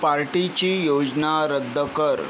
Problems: none marked